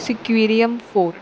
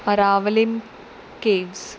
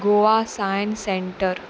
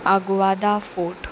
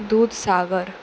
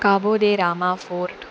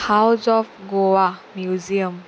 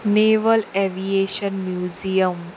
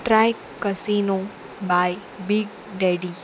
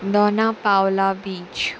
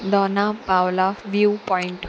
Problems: constant background noise